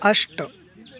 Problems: constant background noise, continuous background conversations